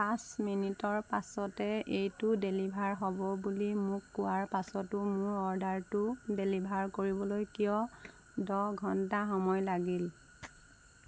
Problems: constant background noise